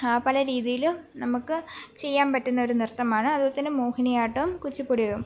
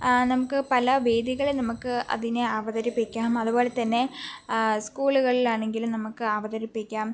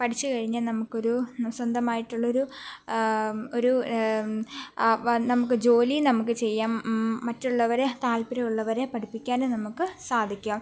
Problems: background sounds at intervals